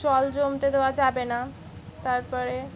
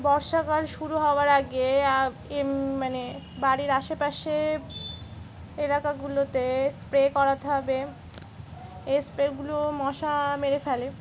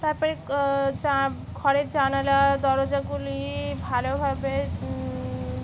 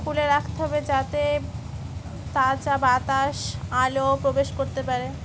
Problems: none marked